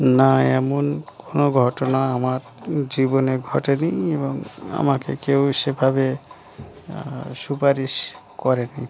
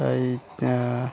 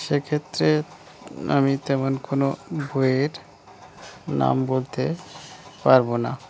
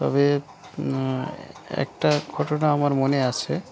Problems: none marked